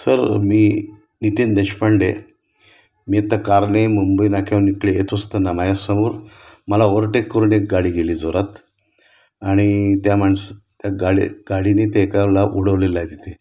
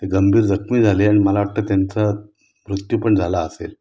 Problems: background sounds at intervals